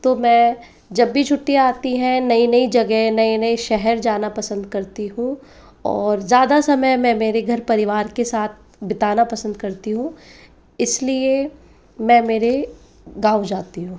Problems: constant background noise